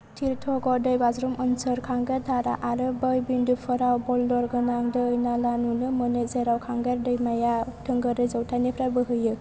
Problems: low volume